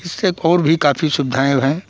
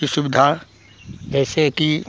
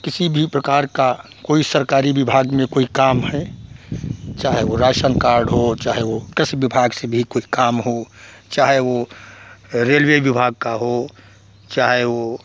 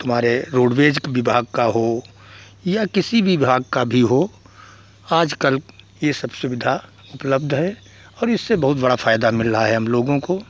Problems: background sounds at intervals